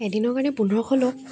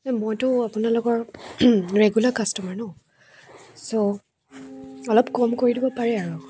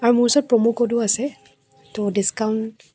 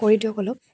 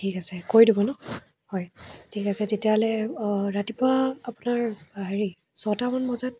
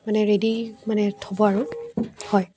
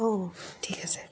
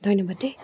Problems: none marked